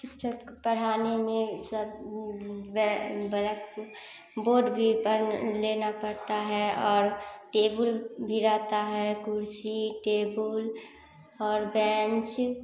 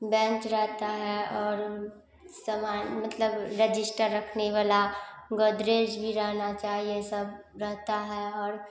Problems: none marked